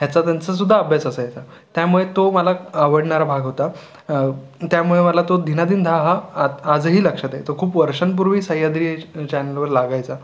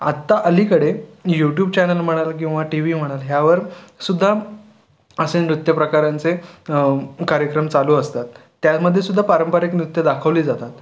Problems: none marked